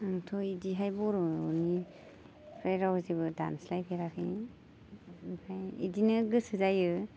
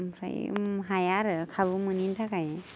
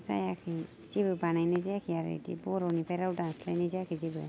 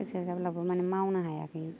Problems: constant background noise